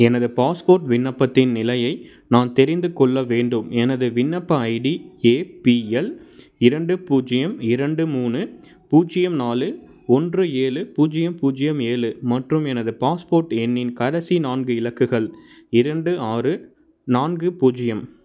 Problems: constant background noise